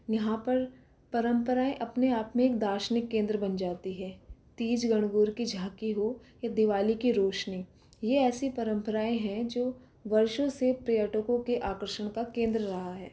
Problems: none marked